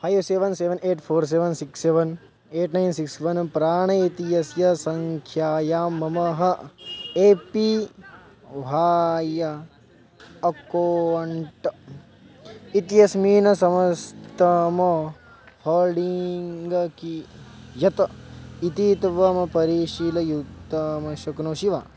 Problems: background sounds at intervals